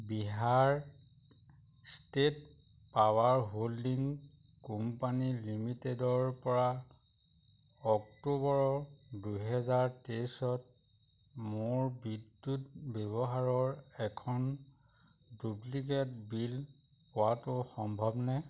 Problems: none marked